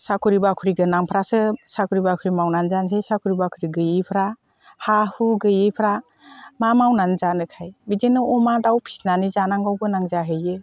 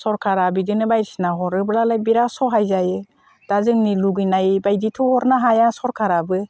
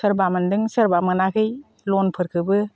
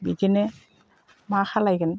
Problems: none marked